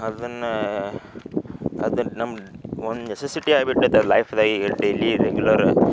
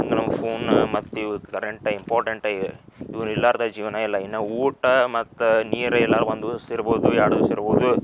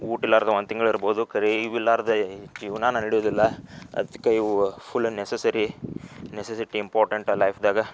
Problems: background sounds at intervals